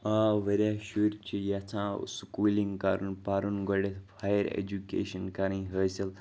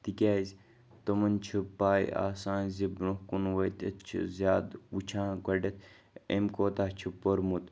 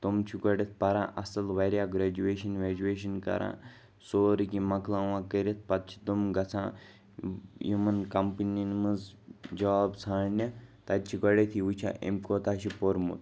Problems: continuous background conversations